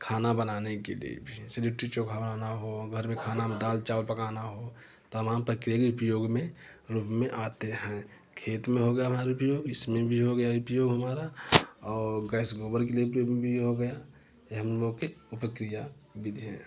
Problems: constant background noise